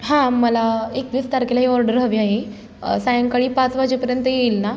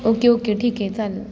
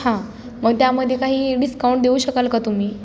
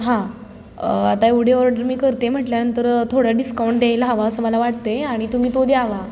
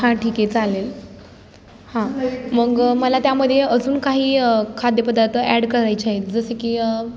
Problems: background conversations at intervals